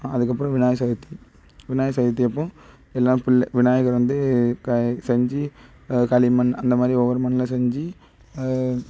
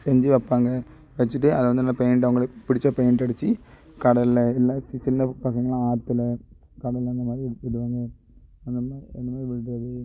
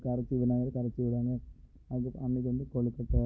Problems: background sounds at intervals